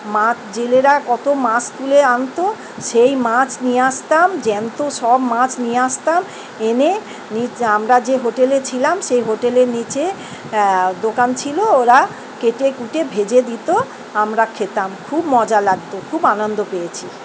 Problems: none marked